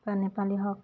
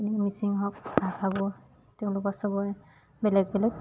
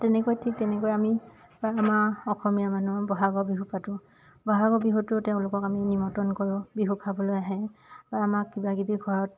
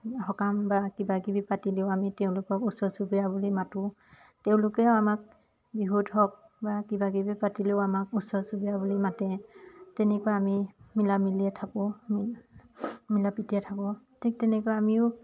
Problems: constant background noise, background conversations at intervals